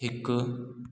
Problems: echo